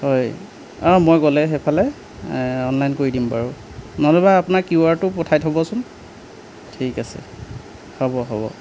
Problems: background sounds at intervals